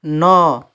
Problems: none marked